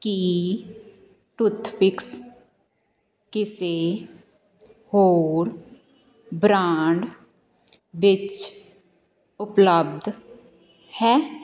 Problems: continuous background conversations